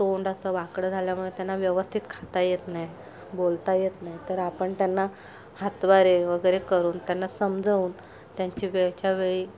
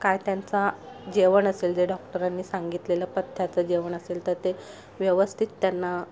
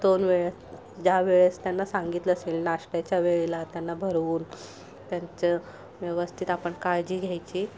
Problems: constant background noise